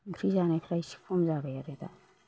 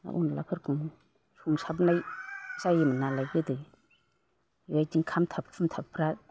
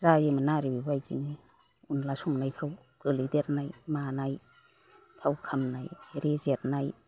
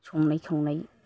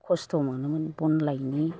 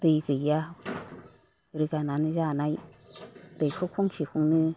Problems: none marked